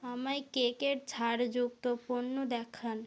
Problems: low volume